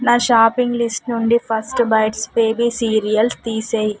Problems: none marked